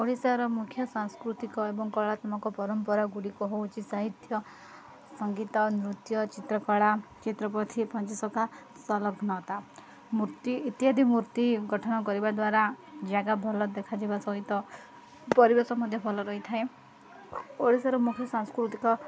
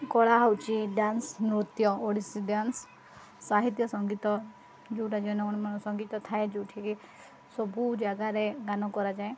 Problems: none marked